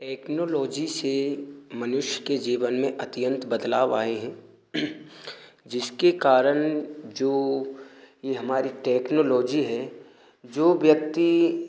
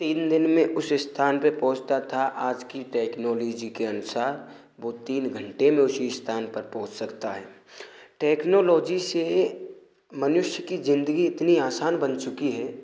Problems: constant background noise